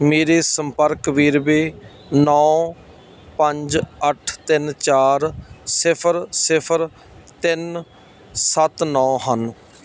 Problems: none marked